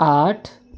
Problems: constant background noise